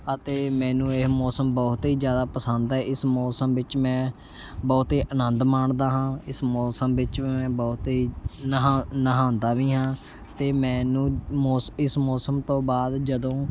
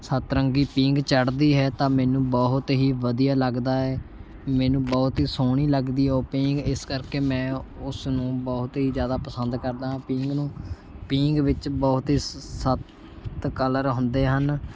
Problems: constant background noise